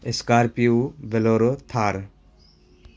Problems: constant background noise